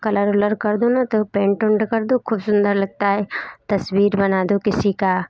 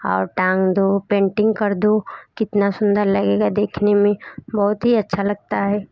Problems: background sounds at intervals, background conversations at intervals